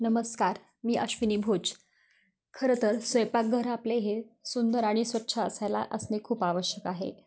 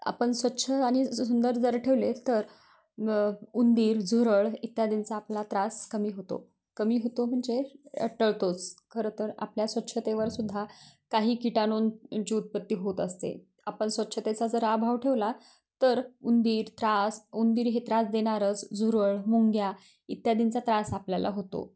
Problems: constant background noise, continuous background conversations